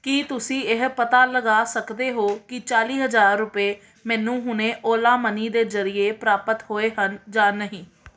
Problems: background sounds at intervals